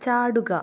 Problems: low volume